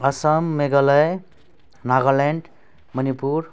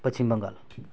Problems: none marked